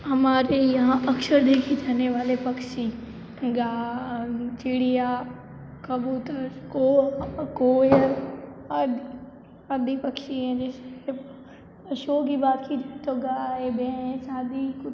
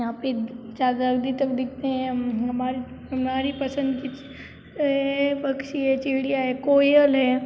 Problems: constant background noise